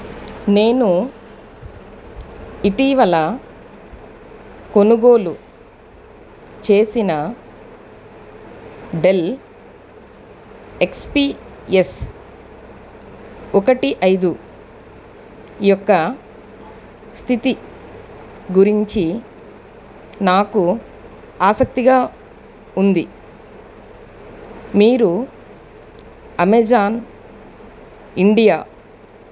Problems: none marked